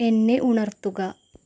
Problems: background sounds at intervals